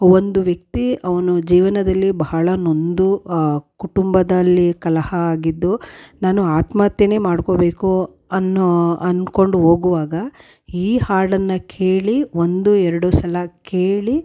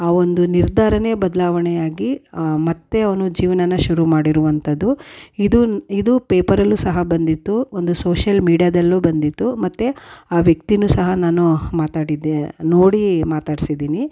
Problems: none marked